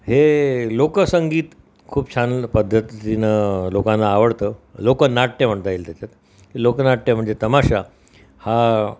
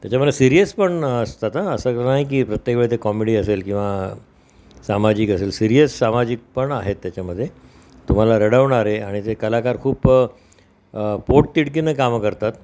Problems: constant background noise